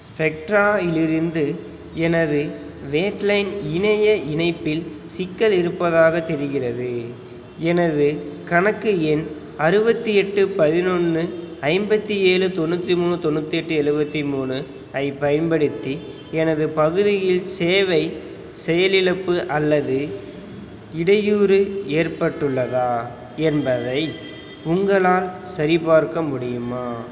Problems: background sounds at intervals